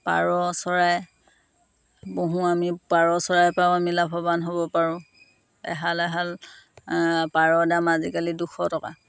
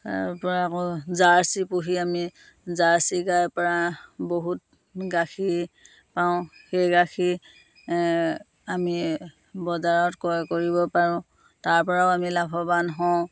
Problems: none marked